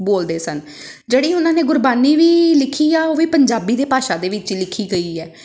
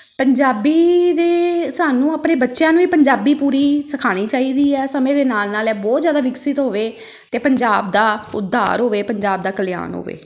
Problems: none marked